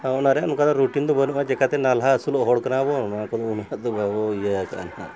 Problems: constant background noise